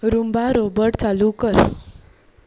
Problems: constant background noise